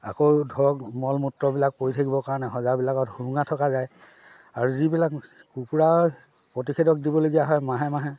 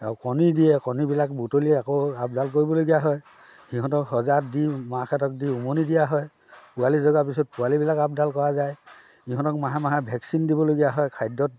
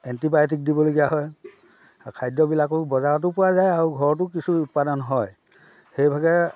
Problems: background sounds at intervals, background conversations at intervals